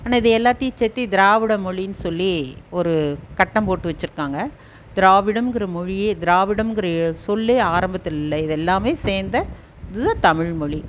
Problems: none marked